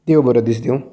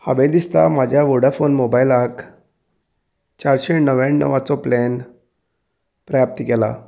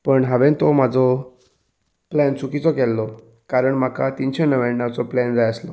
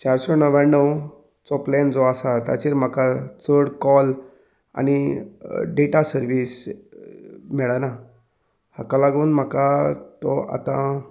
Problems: background sounds at intervals